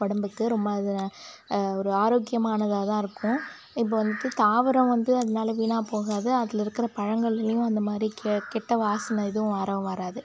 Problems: constant background noise